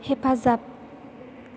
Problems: none marked